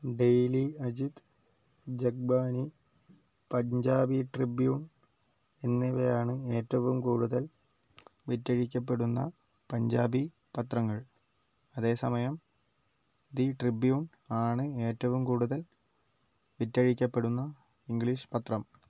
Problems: low volume